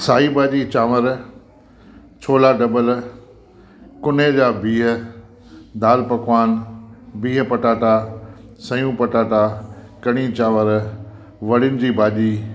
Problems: constant background noise